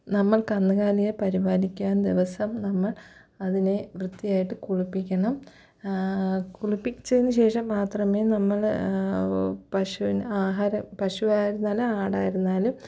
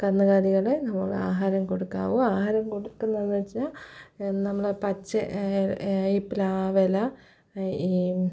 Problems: low volume